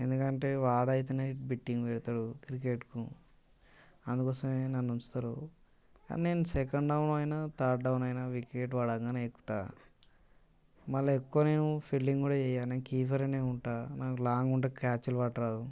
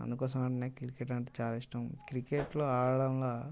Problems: constant background noise